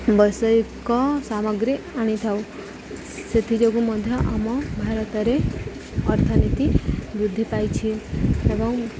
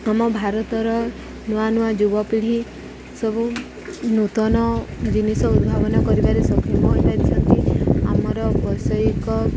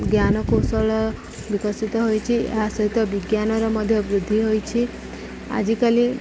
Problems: none marked